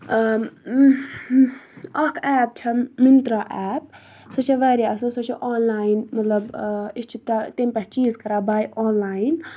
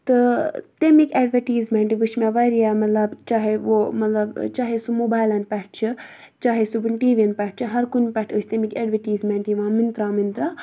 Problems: none marked